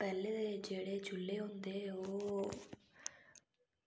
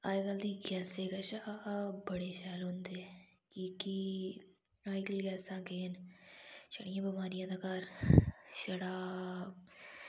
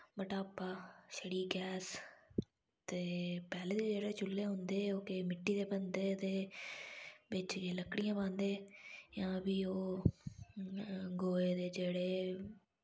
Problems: none marked